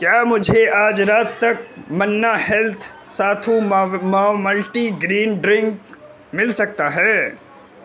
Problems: constant background noise